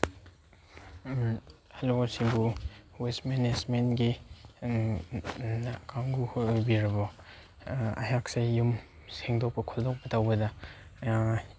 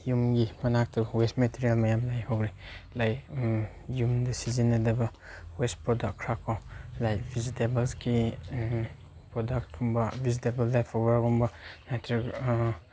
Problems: constant background noise